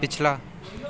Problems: background sounds at intervals